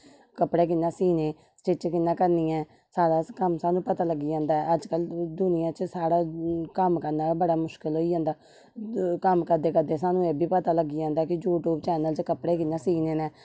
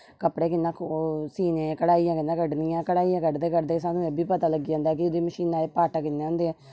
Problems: none marked